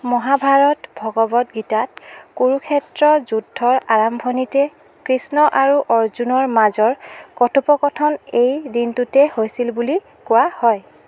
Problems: constant background noise